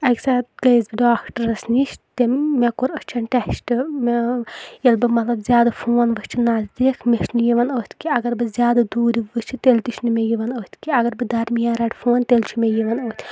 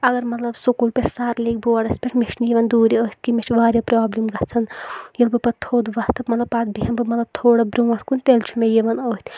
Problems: none marked